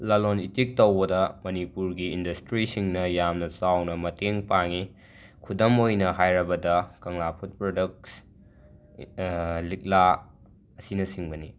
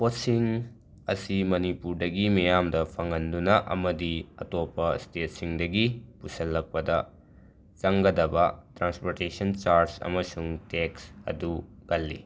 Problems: background sounds at intervals